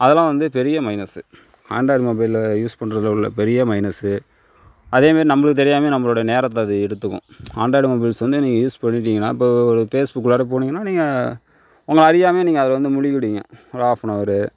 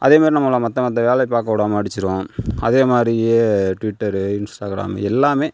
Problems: none marked